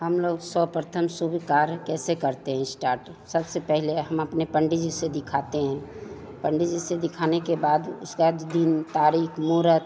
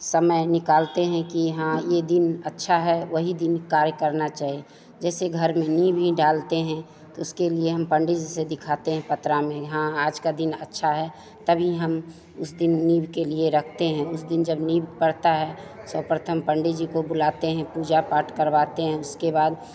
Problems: constant background noise, background conversations at intervals